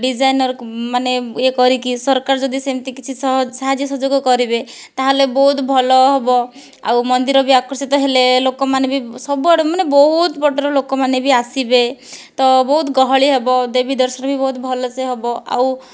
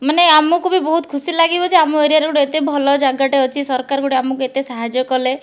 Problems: none marked